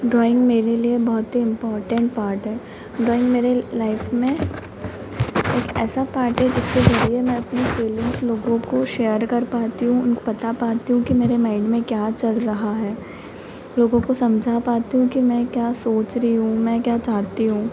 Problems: constant background noise